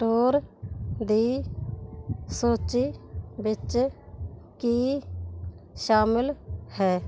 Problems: none marked